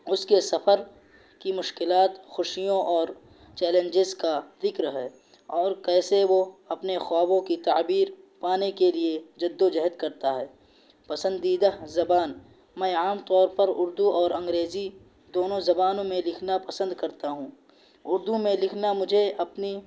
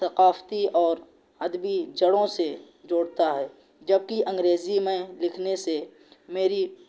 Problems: constant background noise